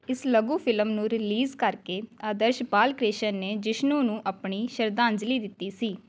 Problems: background conversations at intervals